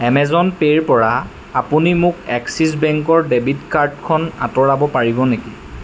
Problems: constant background noise